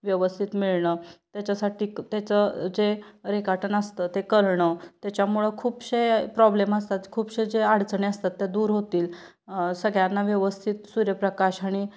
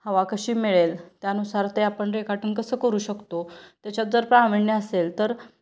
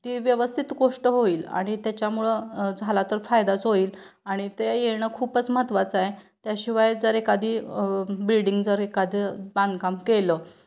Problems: none marked